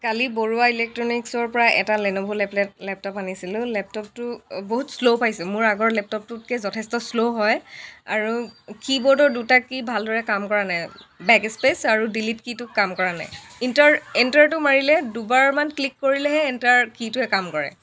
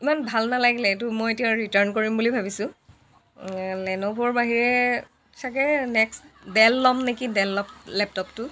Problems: constant background noise